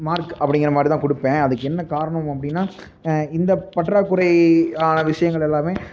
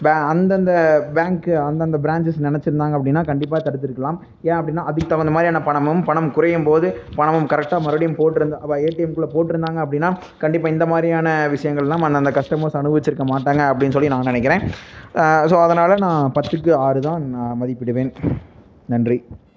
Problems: background sounds at intervals, low volume